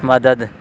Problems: constant background noise